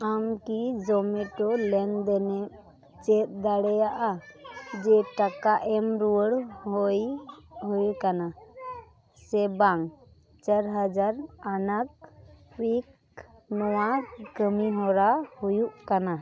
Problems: background conversations at intervals